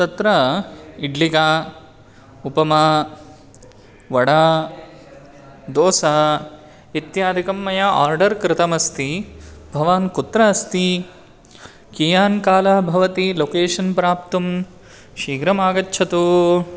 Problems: constant background noise